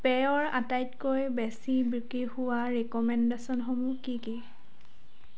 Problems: constant background noise